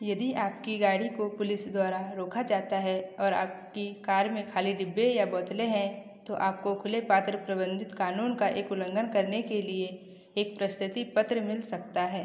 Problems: echo